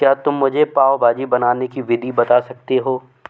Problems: background sounds at intervals